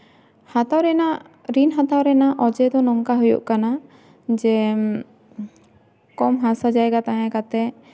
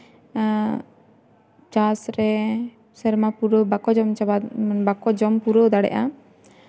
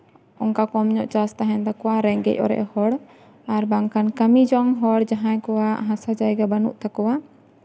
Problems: background sounds at intervals, background conversations at intervals